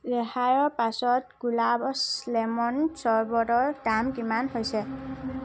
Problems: background sounds at intervals